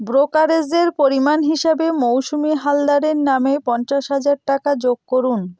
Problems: none marked